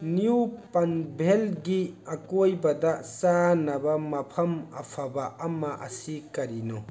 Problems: constant background noise, background conversations at intervals